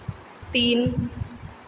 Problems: constant background noise, echo